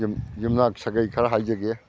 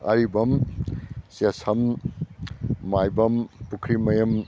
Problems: none marked